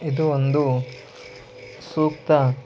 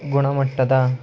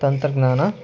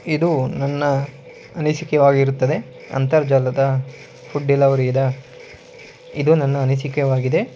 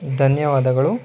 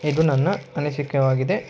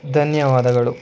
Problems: background sounds at intervals